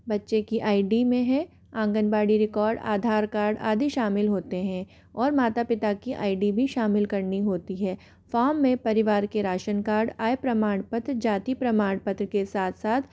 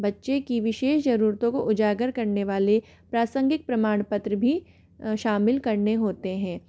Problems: none marked